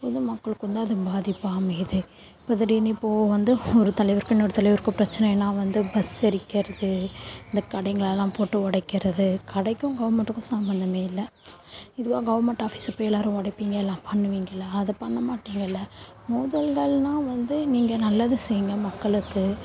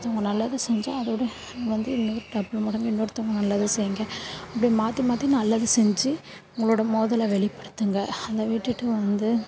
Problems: background sounds at intervals, low volume